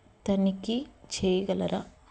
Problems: constant background noise